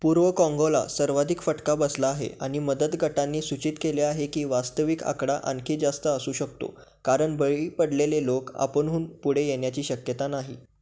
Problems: none marked